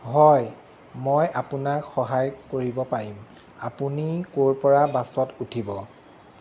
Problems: constant background noise